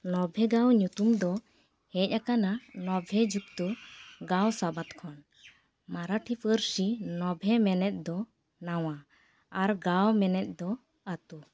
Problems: none marked